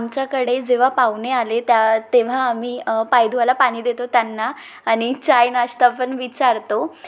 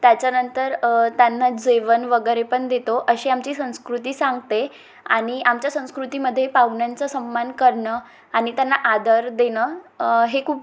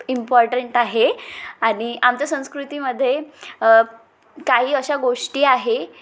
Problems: constant background noise, background conversations at intervals, echo